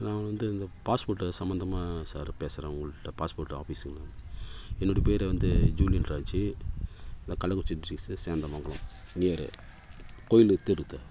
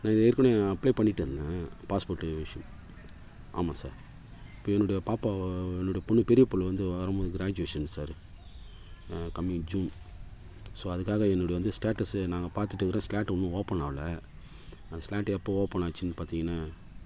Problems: constant background noise